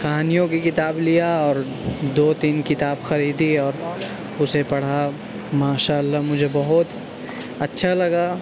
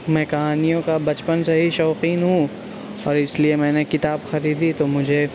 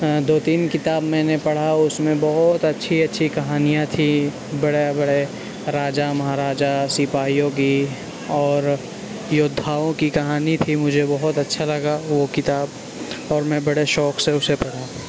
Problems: constant background noise